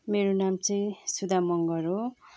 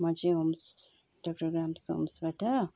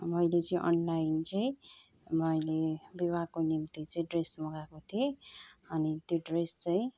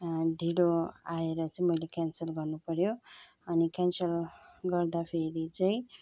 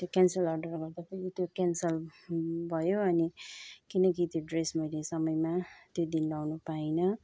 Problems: background sounds at intervals, continuous background conversations